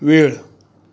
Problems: none marked